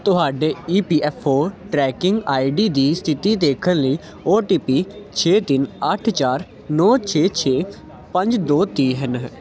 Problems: none marked